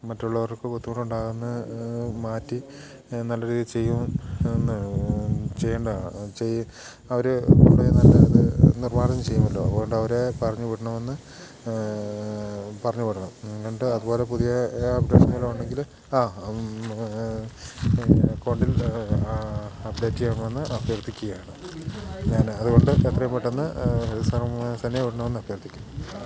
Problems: background sounds at intervals